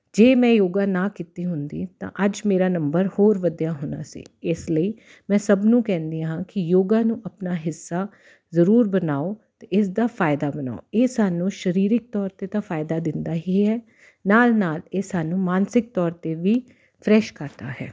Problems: none marked